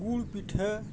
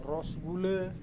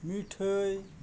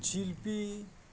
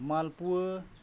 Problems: none marked